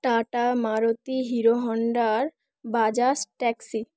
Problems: none marked